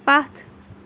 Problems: background sounds at intervals